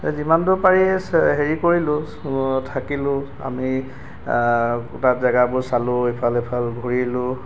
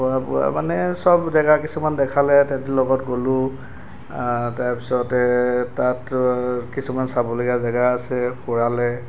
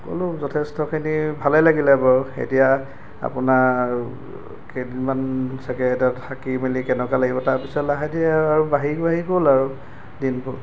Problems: background sounds at intervals